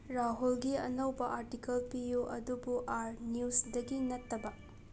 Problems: background sounds at intervals